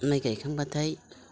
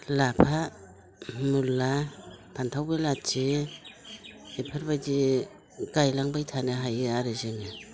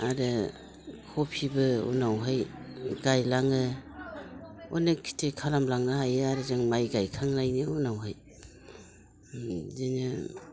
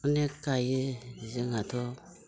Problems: constant background noise